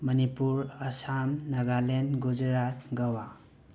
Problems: background sounds at intervals